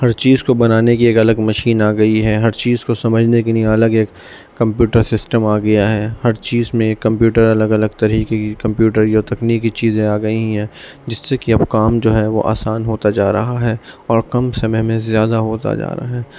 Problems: constant background noise, background conversations at intervals